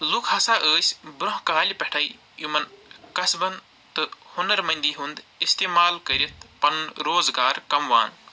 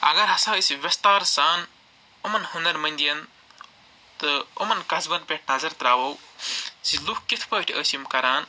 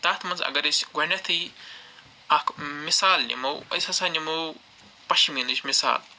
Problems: background sounds at intervals